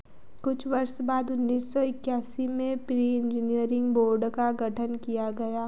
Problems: constant background noise